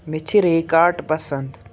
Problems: background sounds at intervals